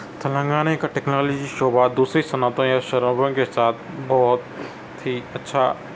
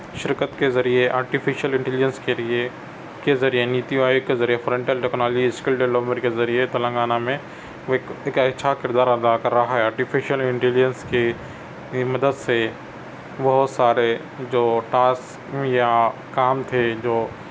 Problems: constant background noise